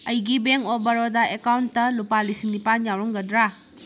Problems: background sounds at intervals